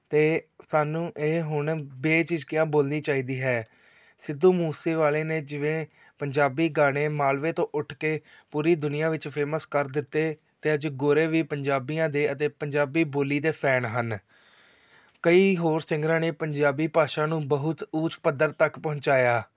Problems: background conversations at intervals